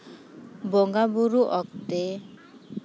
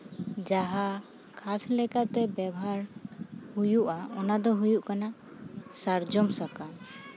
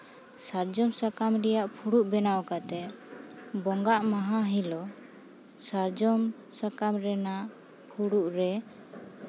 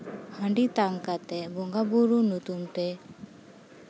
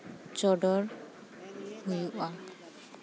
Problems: background sounds at intervals, continuous background conversations